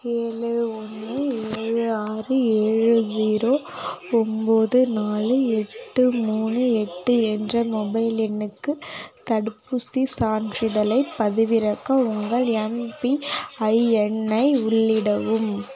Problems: continuous background conversations